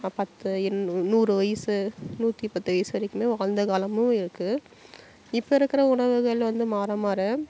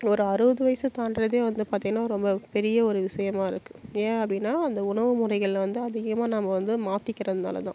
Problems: constant background noise